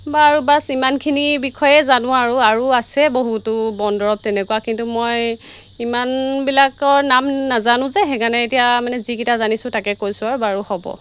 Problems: constant background noise